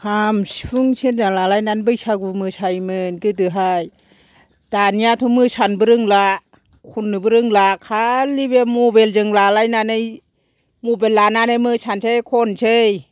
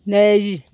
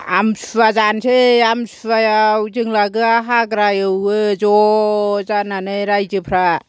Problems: none marked